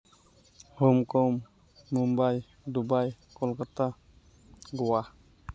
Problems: background sounds at intervals